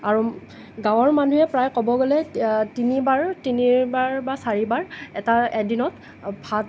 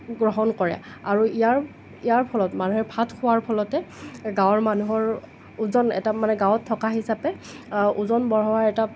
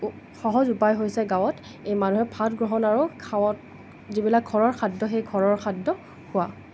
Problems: none marked